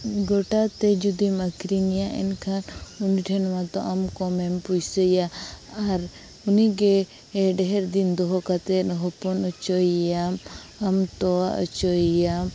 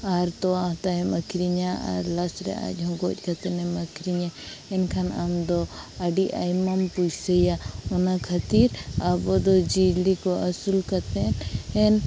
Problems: constant background noise